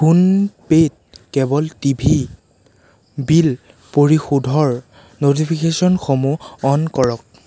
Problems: constant background noise